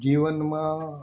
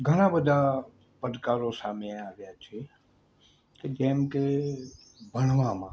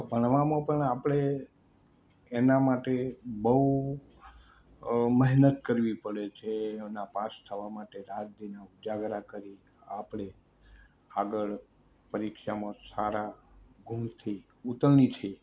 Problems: constant background noise